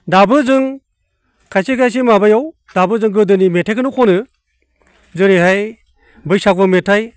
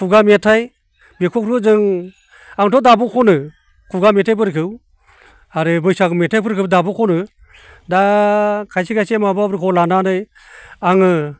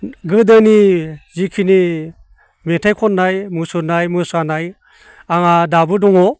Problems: none marked